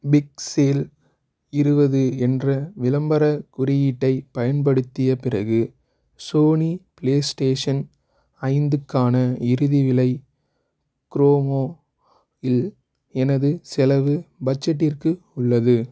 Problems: none marked